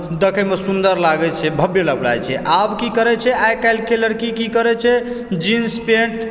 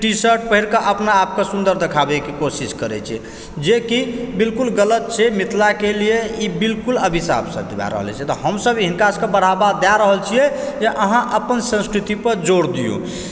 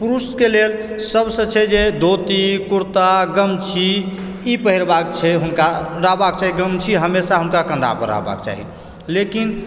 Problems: background sounds at intervals